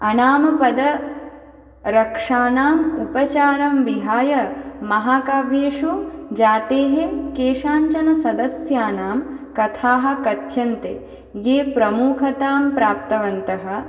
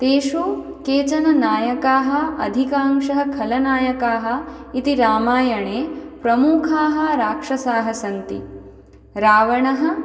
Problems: none marked